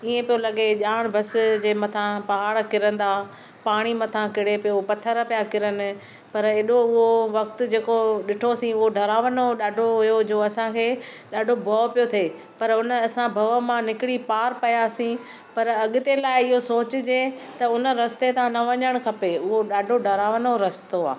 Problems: none marked